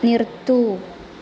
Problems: constant background noise, low volume